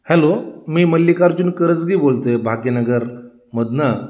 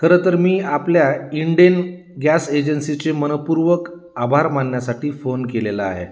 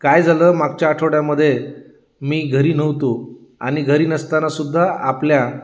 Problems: none marked